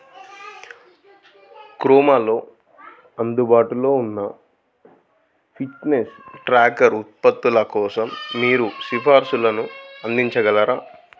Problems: background sounds at intervals